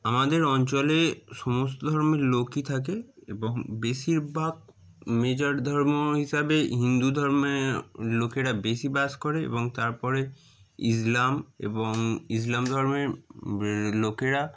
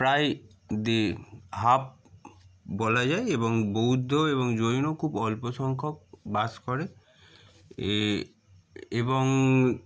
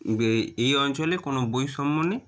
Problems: none marked